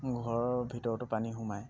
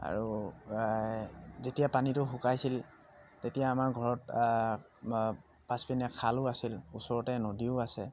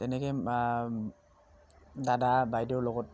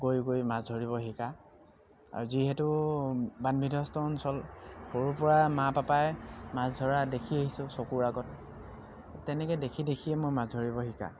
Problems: constant background noise